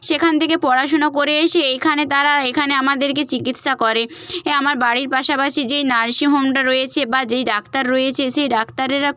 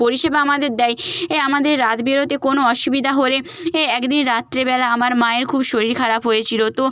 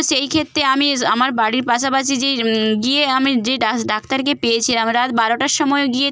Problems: none marked